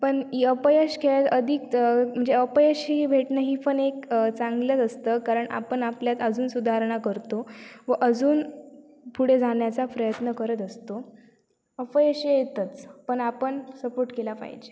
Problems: none marked